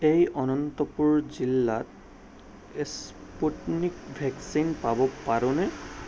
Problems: background sounds at intervals